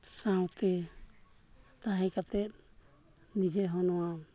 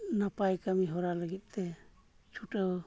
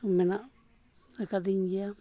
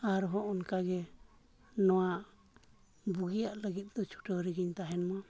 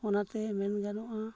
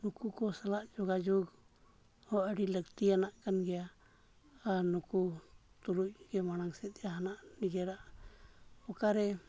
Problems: low volume